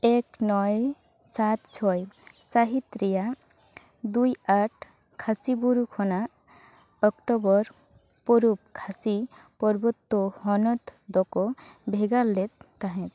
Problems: background sounds at intervals, background conversations at intervals